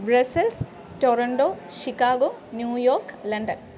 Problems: constant background noise